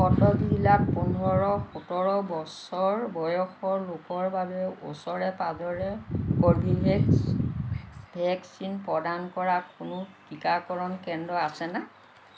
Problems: constant background noise